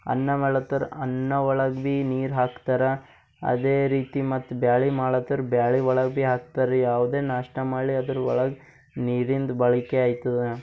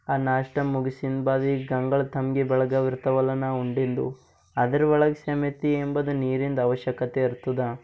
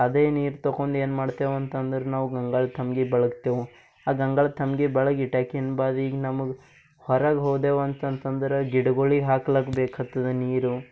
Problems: none marked